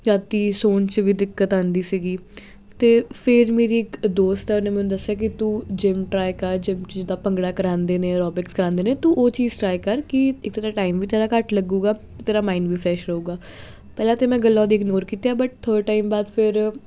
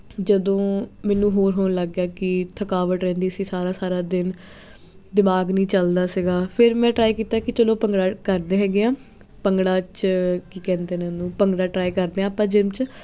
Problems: constant background noise